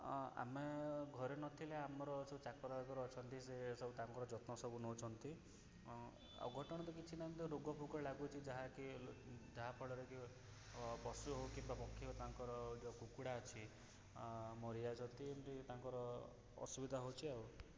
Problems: background sounds at intervals, low volume